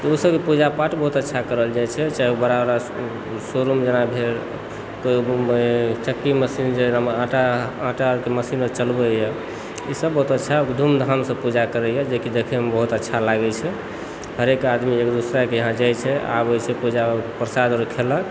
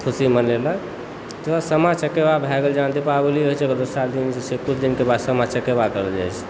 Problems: constant background noise, background conversations at intervals